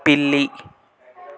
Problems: none marked